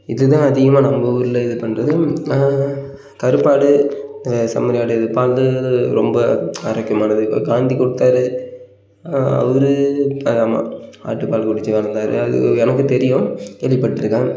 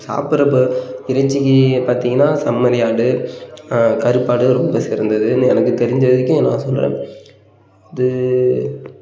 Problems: none marked